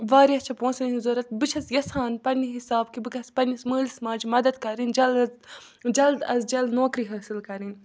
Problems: background sounds at intervals